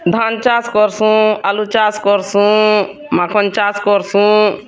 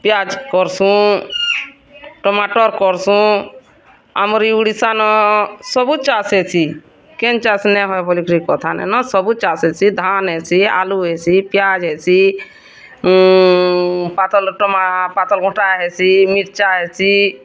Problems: constant background noise, continuous background conversations